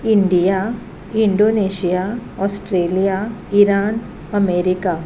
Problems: none marked